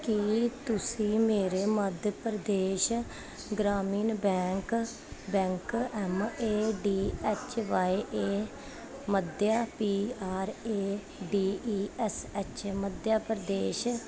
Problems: constant background noise